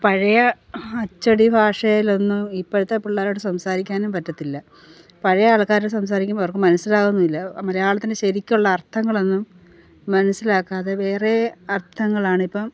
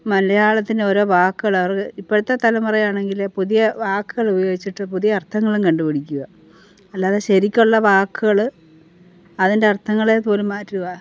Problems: none marked